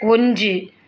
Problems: background sounds at intervals